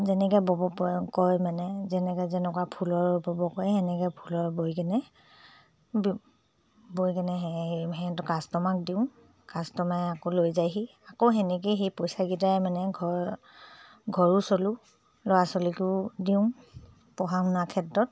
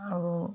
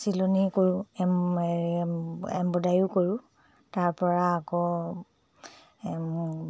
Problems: low volume